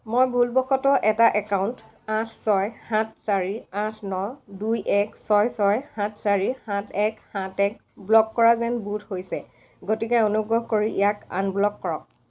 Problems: none marked